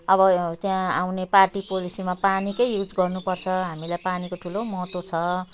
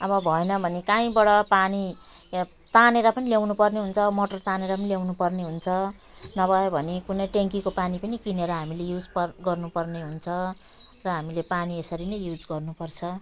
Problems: none marked